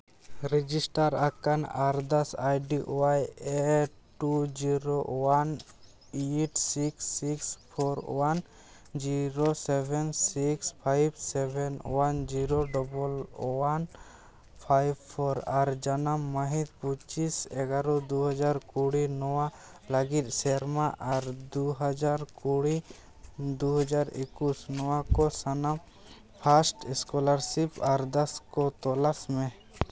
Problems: background sounds at intervals